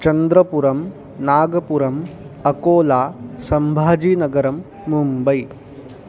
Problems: none marked